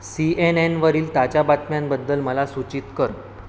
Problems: constant background noise